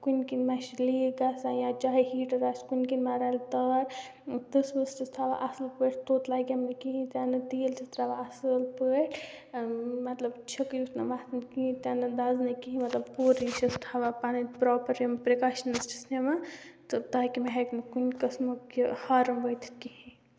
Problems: constant background noise